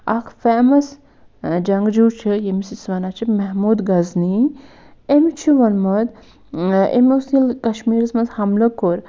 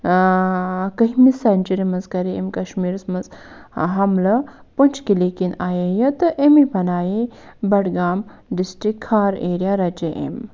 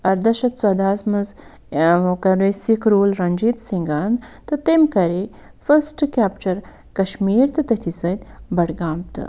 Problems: none marked